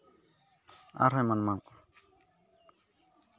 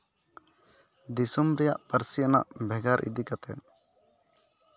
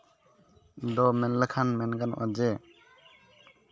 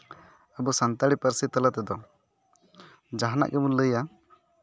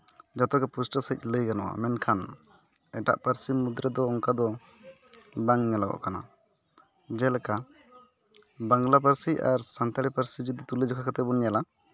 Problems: none marked